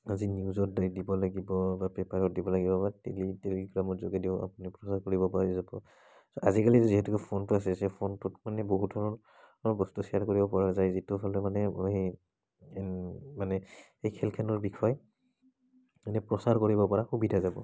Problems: none marked